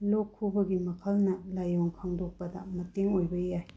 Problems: low volume